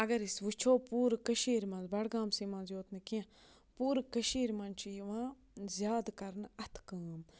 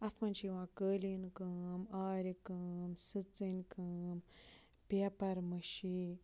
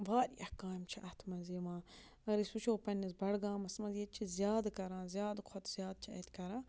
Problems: low volume